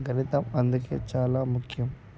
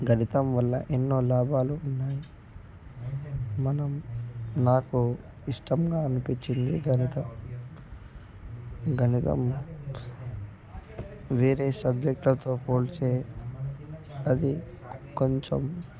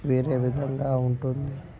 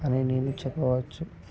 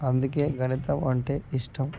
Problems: background sounds at intervals, continuous background conversations, low volume